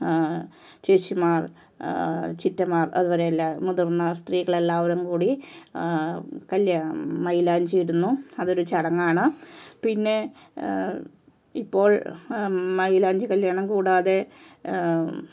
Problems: low volume